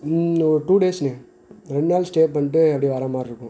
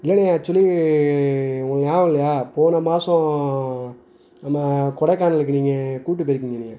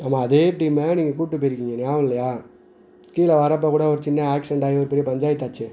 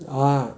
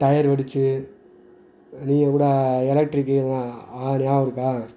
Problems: none marked